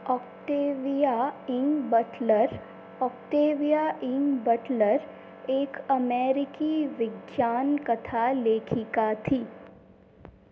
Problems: constant background noise